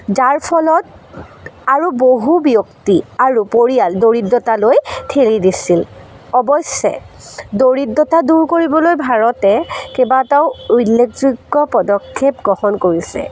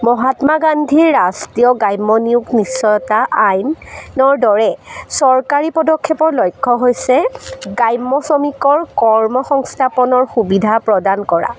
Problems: constant background noise